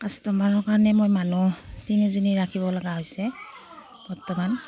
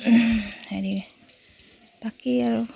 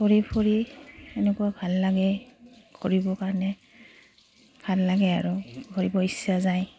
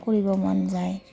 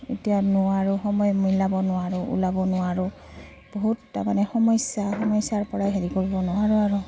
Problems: none marked